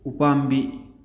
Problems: none marked